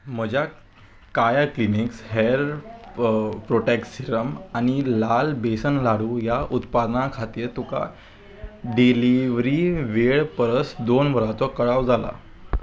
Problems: background sounds at intervals